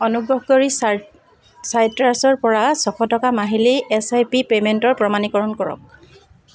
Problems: none marked